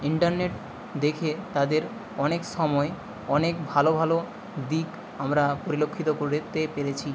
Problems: constant background noise